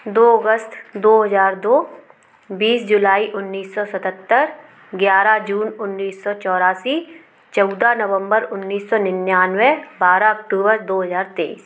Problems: none marked